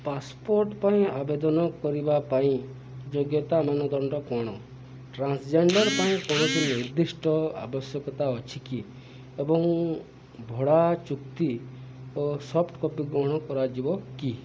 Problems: background sounds at intervals